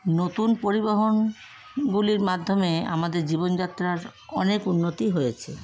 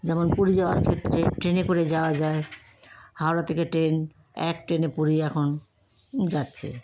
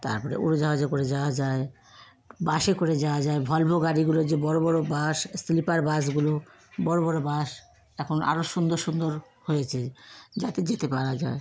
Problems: constant background noise